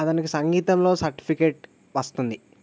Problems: none marked